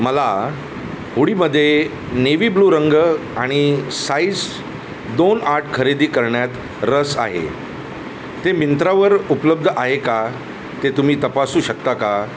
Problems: constant background noise